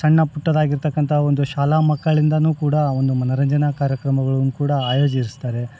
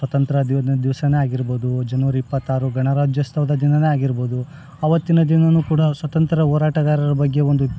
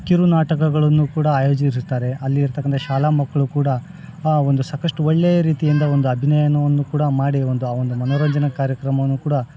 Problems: background conversations at intervals